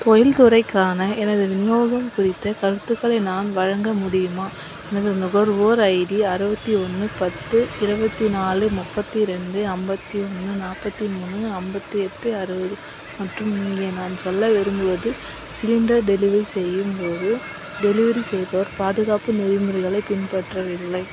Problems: constant background noise